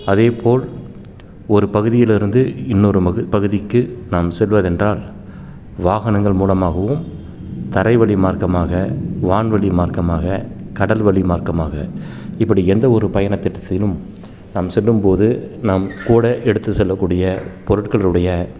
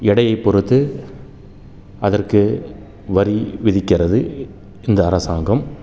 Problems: background sounds at intervals